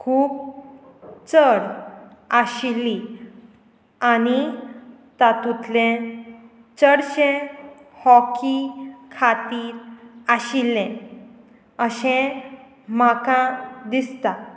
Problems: constant background noise